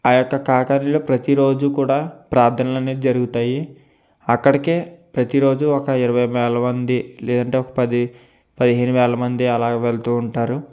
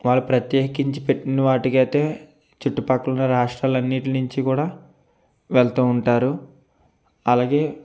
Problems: none marked